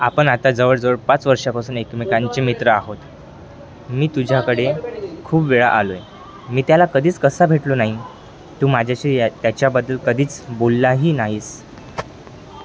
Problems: constant background noise, background conversations at intervals